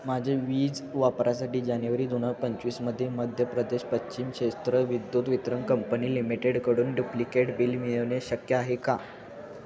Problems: constant background noise, background conversations at intervals